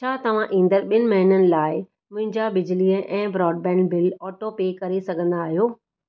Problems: none marked